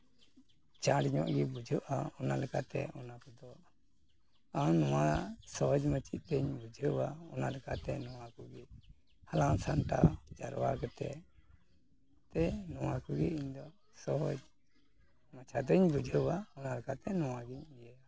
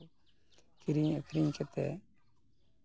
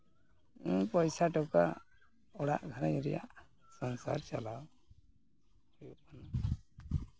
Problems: background sounds at intervals